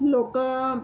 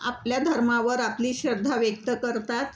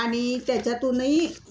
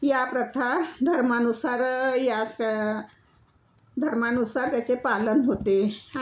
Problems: none marked